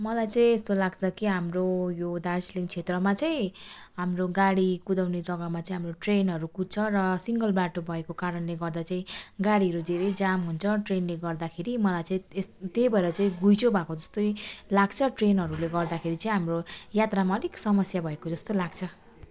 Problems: none marked